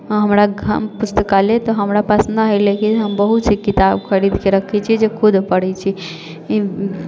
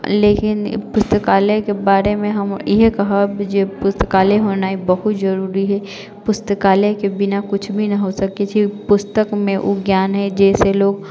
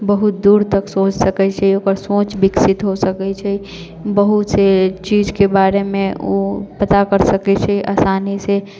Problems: none marked